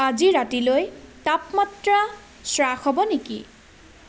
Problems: constant background noise